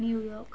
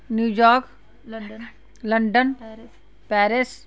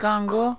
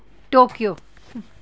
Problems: background sounds at intervals, background conversations at intervals